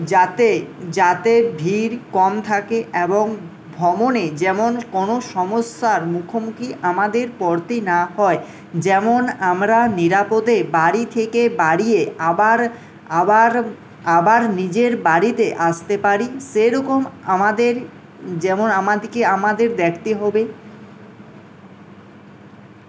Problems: constant background noise